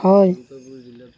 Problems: background sounds at intervals